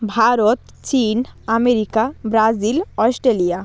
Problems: background sounds at intervals